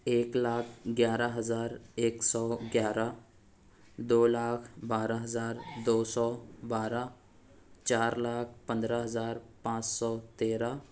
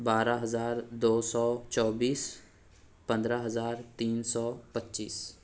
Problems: none marked